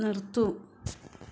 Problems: none marked